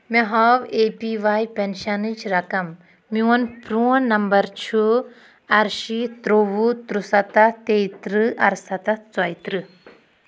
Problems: background sounds at intervals